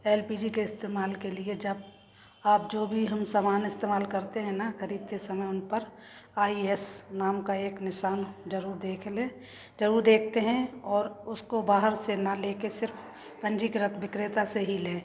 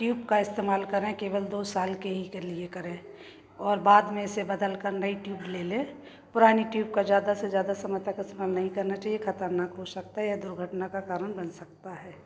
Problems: constant background noise, background conversations at intervals